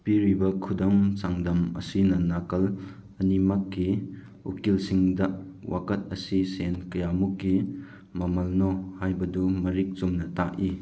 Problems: none marked